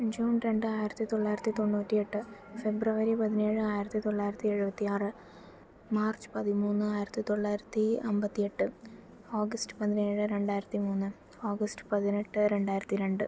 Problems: low volume